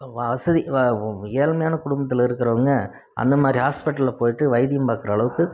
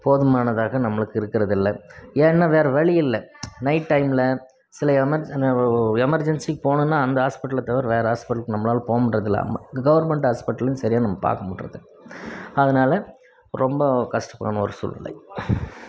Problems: none marked